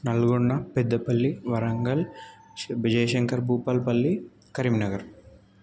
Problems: none marked